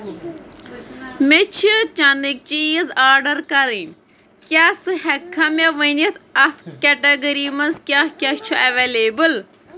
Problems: constant background noise